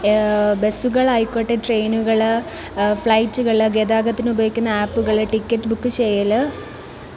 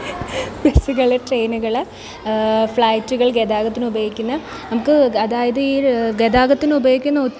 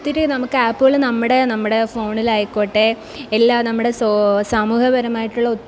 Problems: none marked